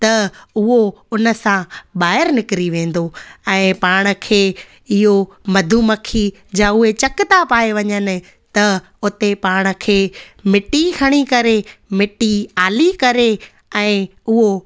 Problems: none marked